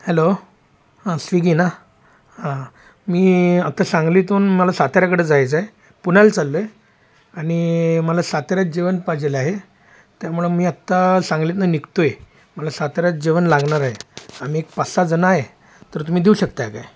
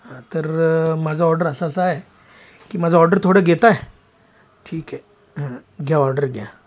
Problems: constant background noise, background conversations at intervals